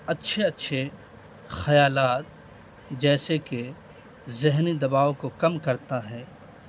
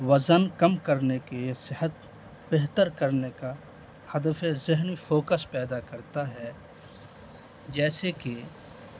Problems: constant background noise